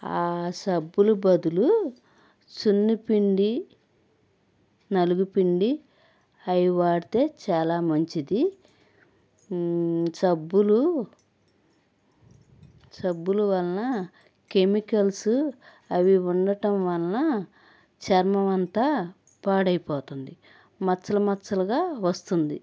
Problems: background sounds at intervals